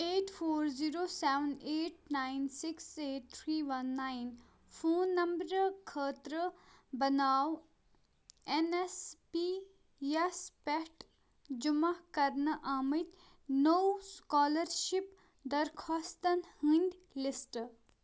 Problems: none marked